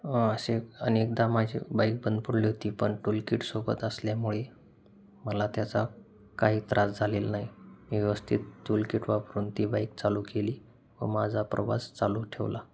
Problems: constant background noise